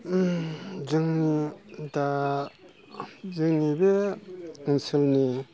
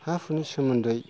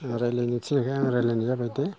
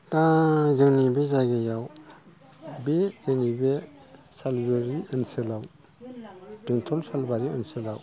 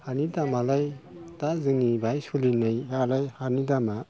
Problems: background sounds at intervals